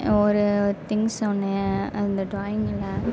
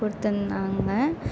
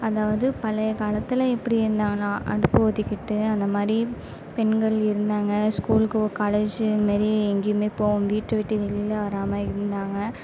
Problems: none marked